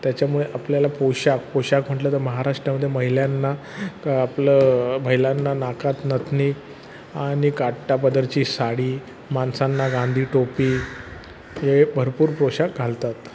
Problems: constant background noise